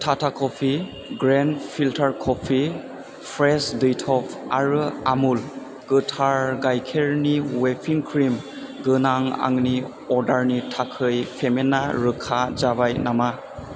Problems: none marked